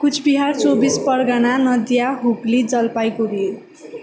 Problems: none marked